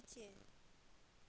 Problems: none marked